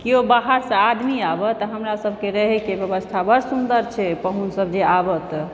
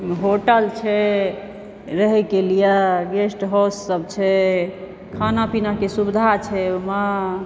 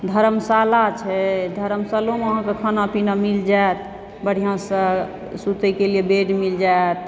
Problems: background sounds at intervals